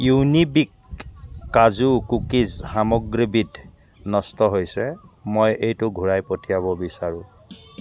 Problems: constant background noise